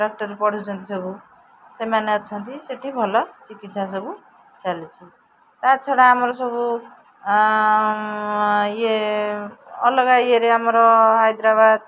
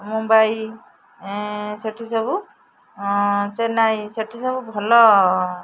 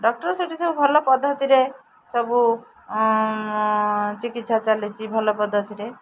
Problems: none marked